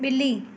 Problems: none marked